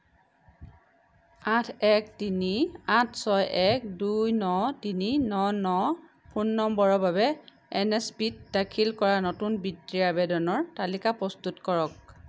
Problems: none marked